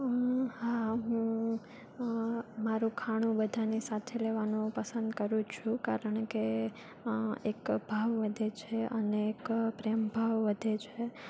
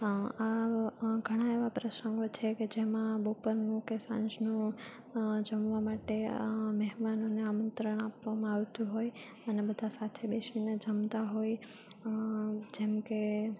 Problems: none marked